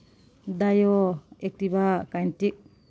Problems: none marked